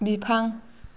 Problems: constant background noise